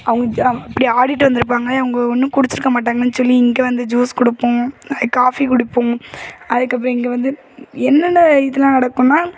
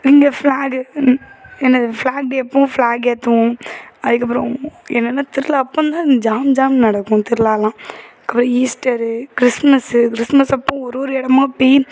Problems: background sounds at intervals, background conversations at intervals